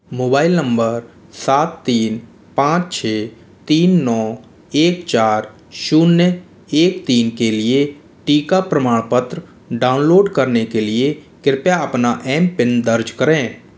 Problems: none marked